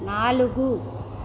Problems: constant background noise